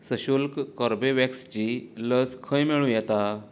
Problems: low volume